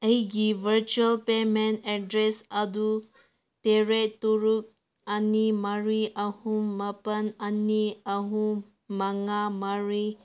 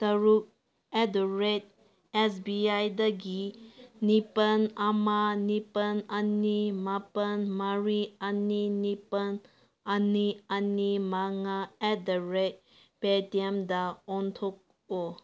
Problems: none marked